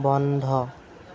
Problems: constant background noise